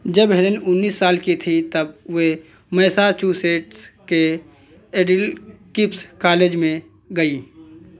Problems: background sounds at intervals, background conversations at intervals